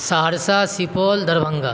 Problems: constant background noise